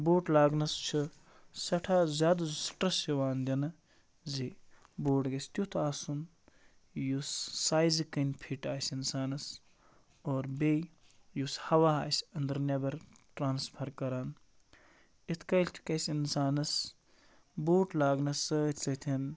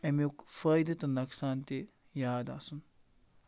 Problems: constant background noise